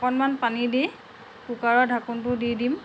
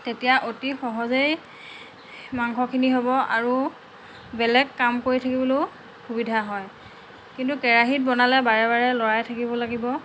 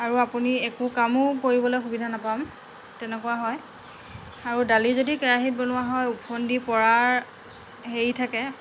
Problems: background conversations at intervals